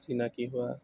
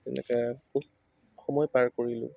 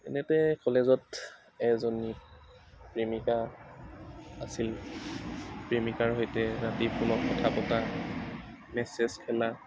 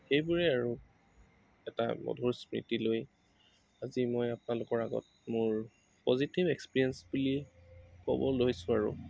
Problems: none marked